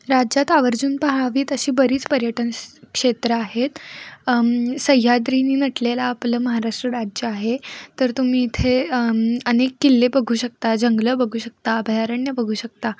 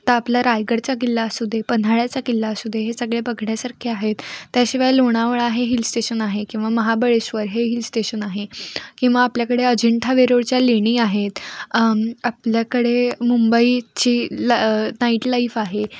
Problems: none marked